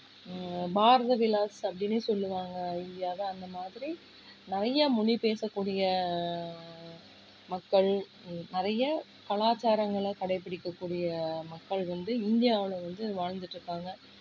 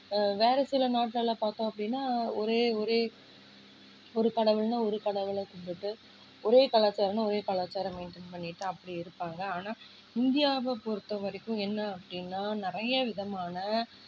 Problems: low volume